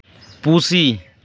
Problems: background sounds at intervals